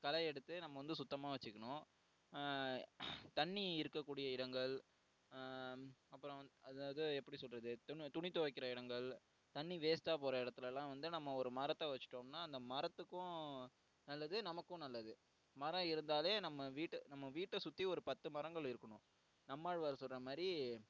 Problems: low volume